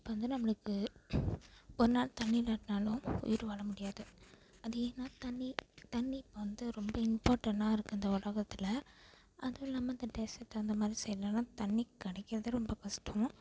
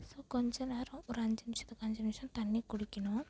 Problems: background sounds at intervals